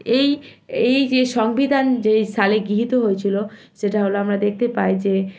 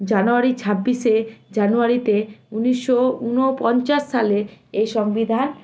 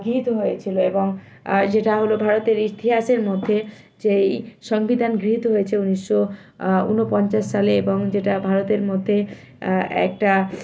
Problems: none marked